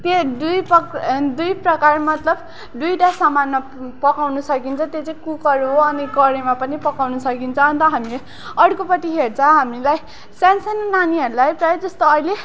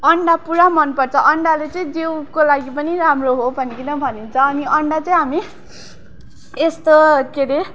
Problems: background sounds at intervals